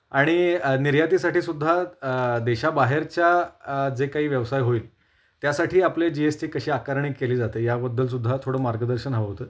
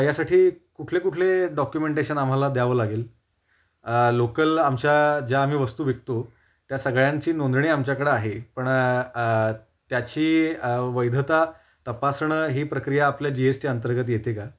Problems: none marked